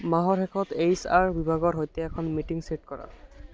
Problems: constant background noise